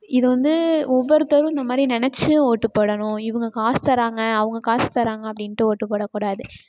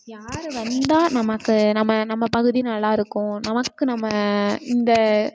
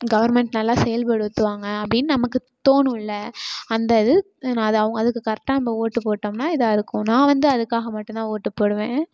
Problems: background sounds at intervals